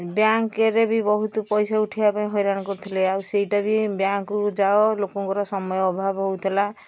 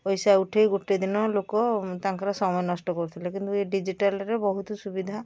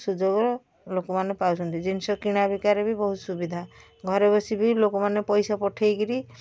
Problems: background sounds at intervals